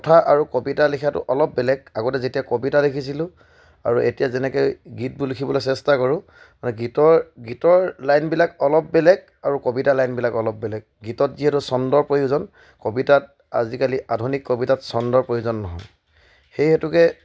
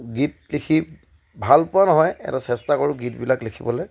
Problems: background sounds at intervals